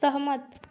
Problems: constant background noise